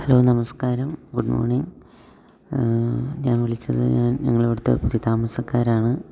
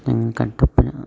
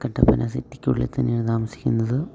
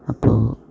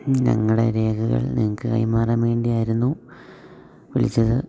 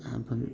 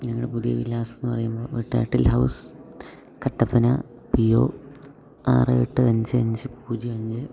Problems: low volume